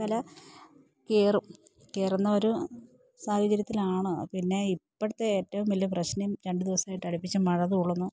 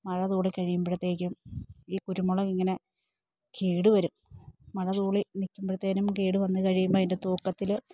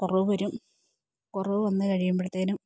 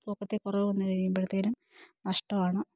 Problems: none marked